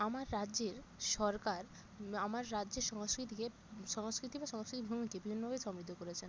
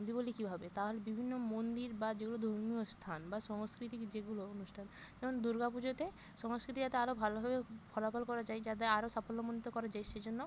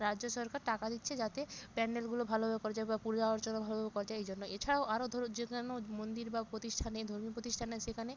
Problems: constant background noise